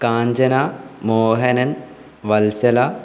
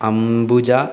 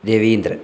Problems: low volume